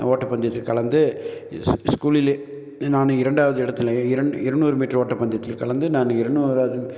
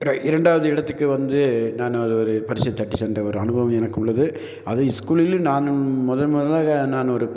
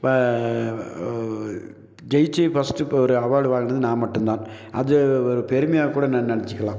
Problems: none marked